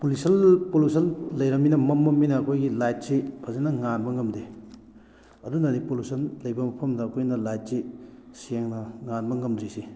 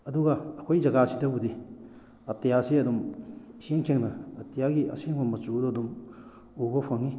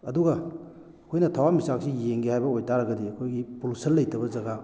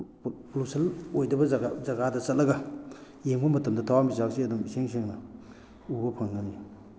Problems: background sounds at intervals